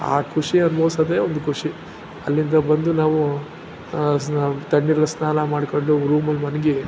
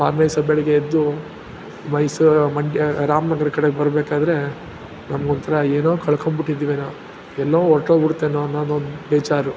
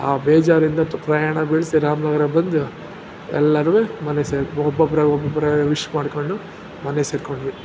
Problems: background sounds at intervals